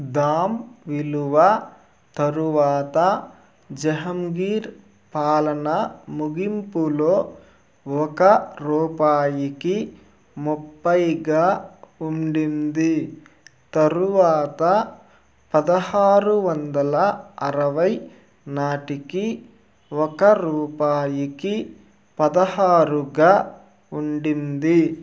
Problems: constant background noise